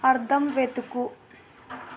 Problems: constant background noise